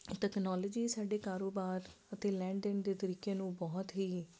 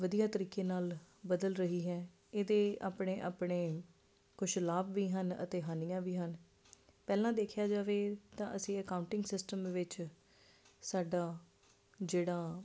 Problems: constant background noise